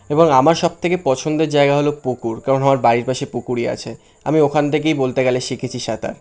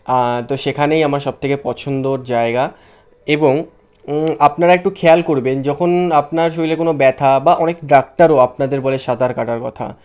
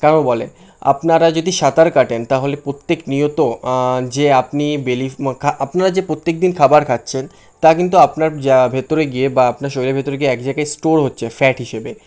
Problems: constant background noise